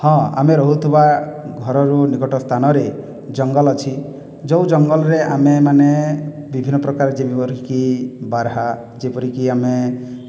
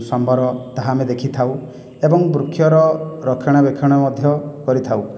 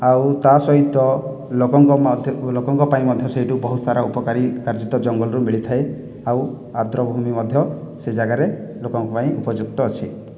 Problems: none marked